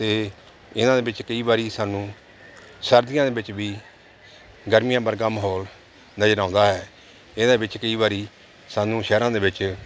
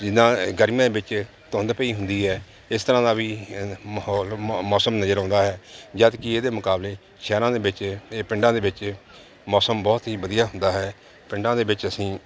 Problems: constant background noise